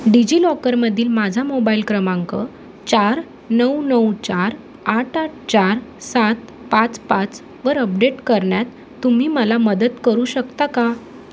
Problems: constant background noise